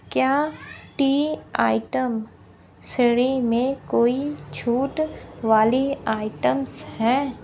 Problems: none marked